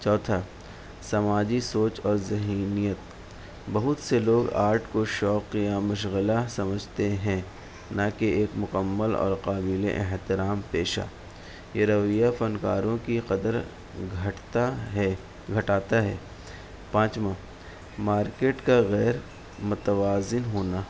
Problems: constant background noise